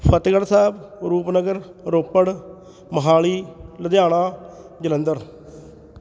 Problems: background conversations at intervals